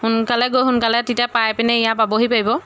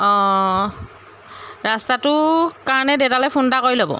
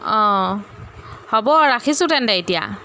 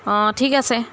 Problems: constant background noise